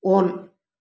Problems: none marked